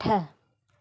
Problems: none marked